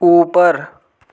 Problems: constant background noise, echo